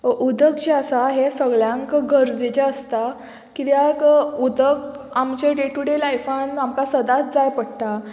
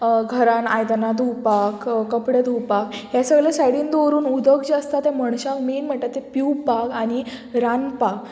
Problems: none marked